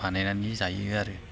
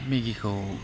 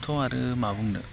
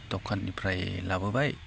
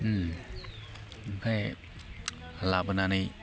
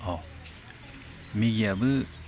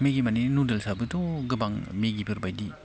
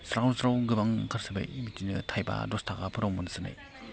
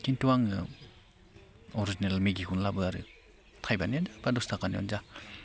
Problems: none marked